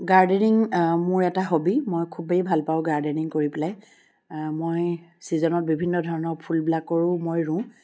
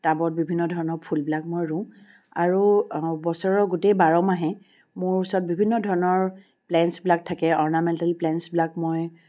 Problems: none marked